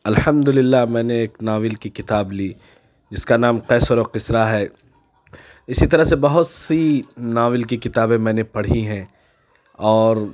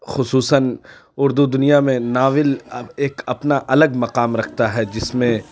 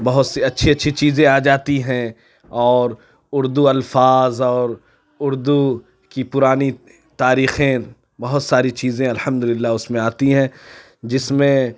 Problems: none marked